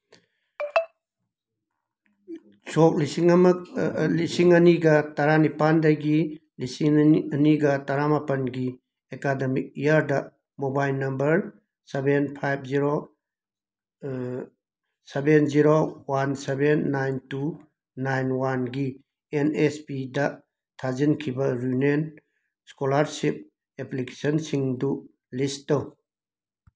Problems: background sounds at intervals